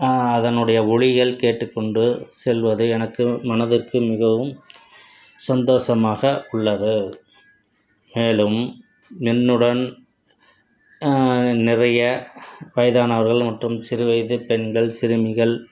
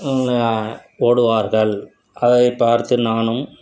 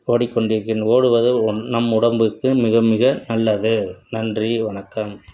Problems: none marked